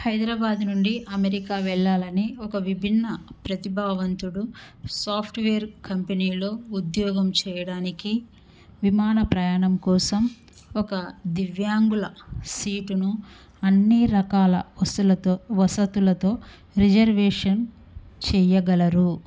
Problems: none marked